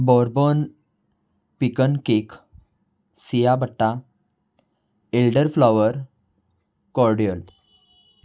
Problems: none marked